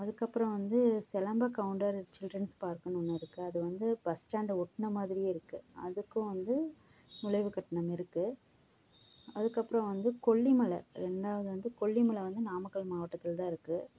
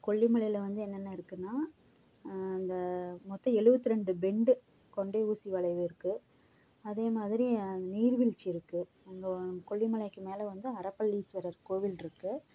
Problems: background sounds at intervals